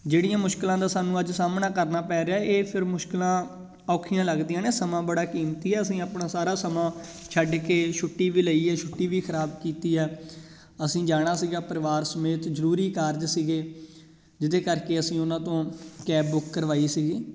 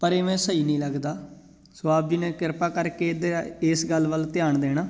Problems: none marked